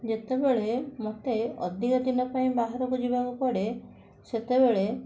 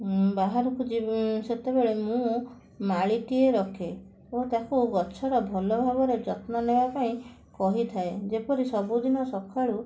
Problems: constant background noise